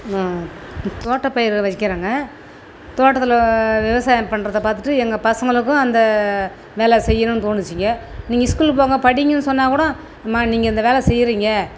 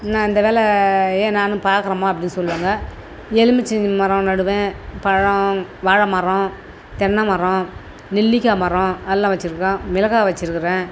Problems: none marked